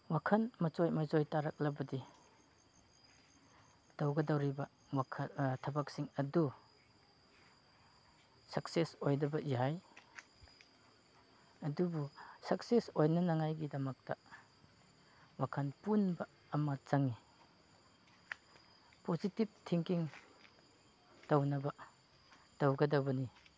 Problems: none marked